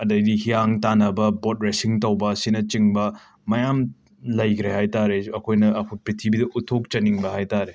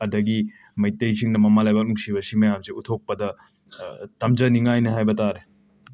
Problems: background sounds at intervals